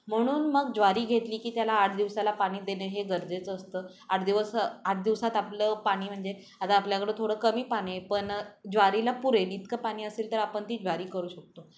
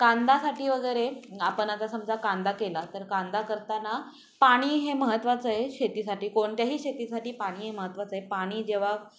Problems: background sounds at intervals, background conversations at intervals